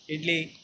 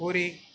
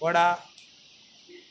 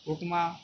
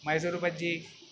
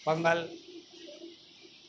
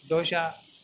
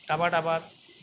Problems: constant background noise